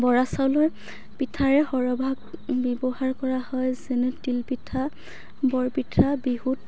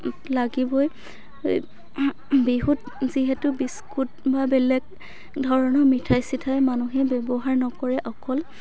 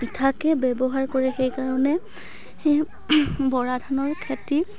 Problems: continuous background conversations